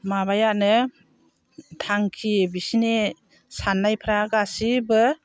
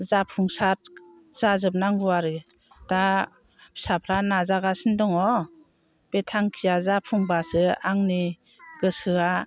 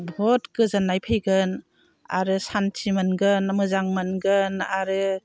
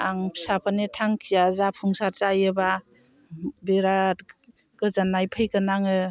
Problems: constant background noise